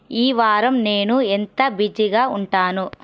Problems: none marked